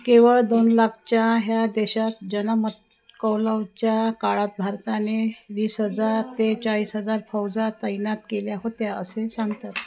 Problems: constant background noise, background conversations at intervals